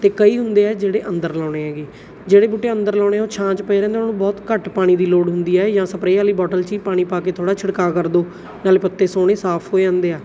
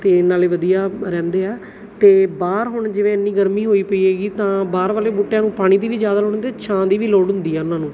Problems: background sounds at intervals